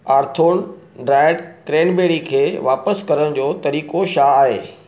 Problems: none marked